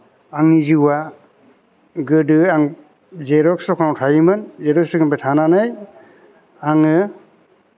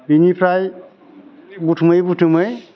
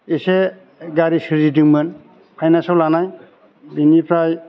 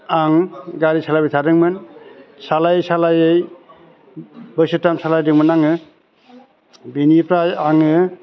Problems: constant background noise